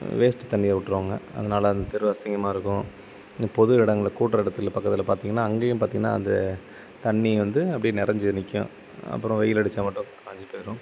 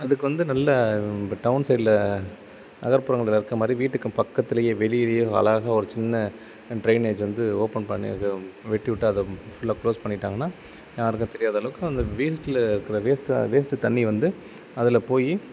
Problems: constant background noise